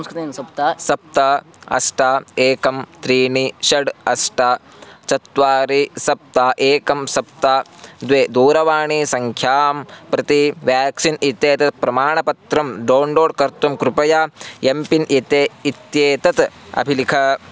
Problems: none marked